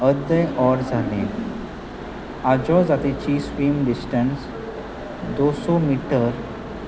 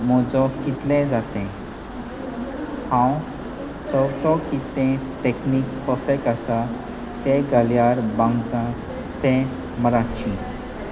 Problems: constant background noise, continuous background conversations